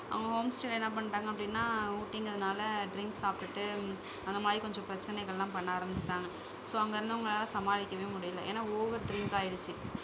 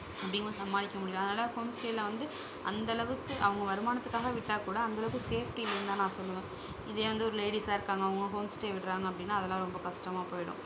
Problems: background sounds at intervals, low volume